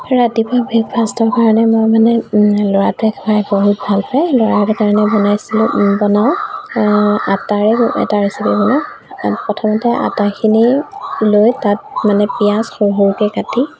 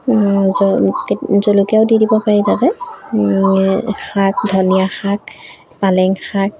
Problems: background sounds at intervals